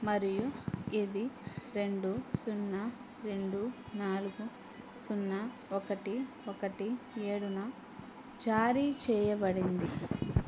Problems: none marked